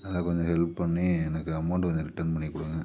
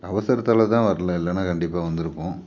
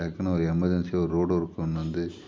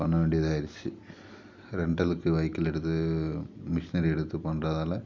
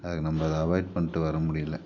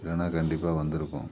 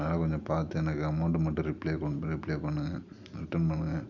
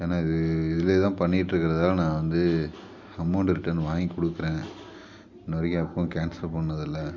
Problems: background sounds at intervals